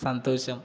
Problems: constant background noise